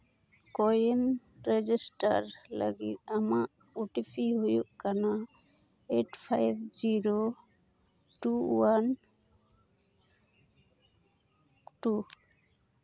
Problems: none marked